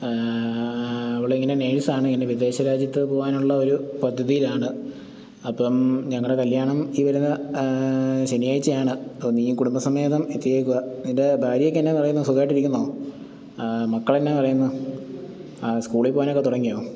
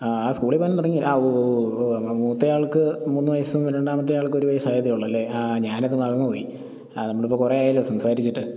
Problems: none marked